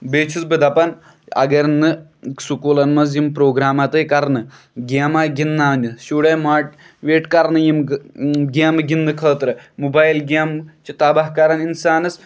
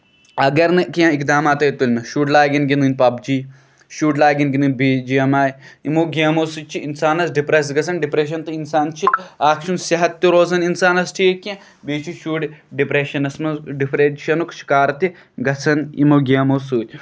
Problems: background sounds at intervals